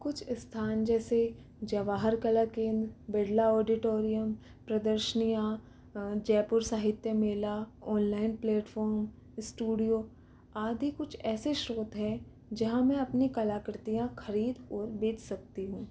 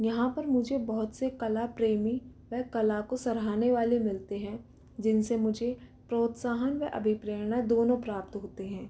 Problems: constant background noise, low volume